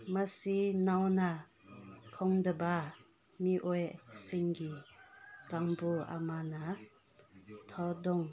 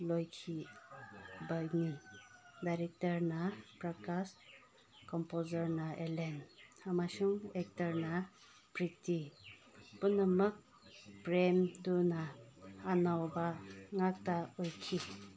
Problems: background conversations at intervals